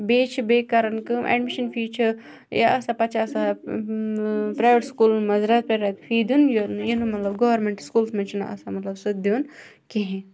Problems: background sounds at intervals